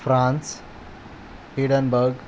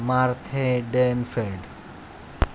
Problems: constant background noise